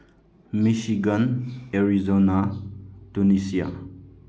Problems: low volume